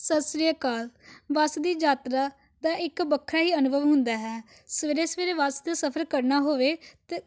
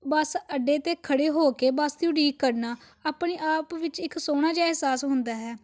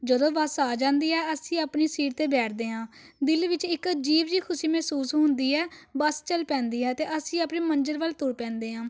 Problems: background sounds at intervals